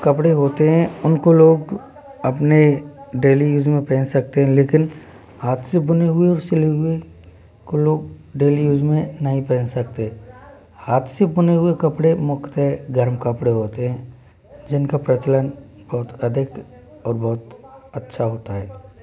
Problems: constant background noise, continuous background conversations